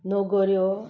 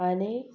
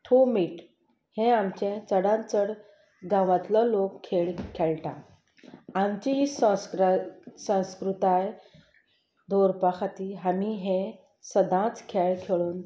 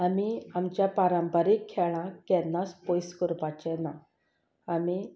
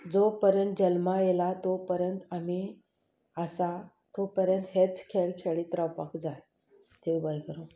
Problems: background sounds at intervals